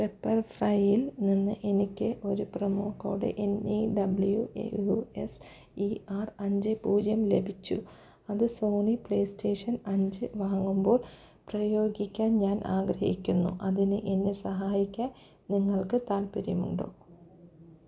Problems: none marked